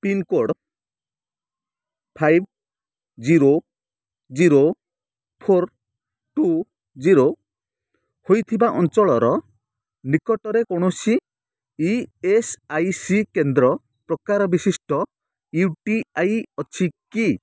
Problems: none marked